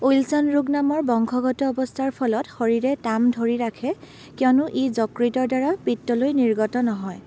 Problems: background sounds at intervals